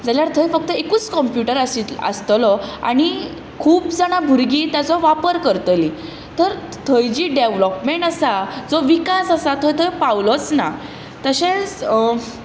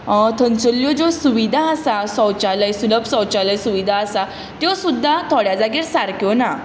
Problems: constant background noise